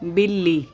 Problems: background sounds at intervals, background conversations at intervals